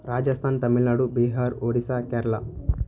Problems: none marked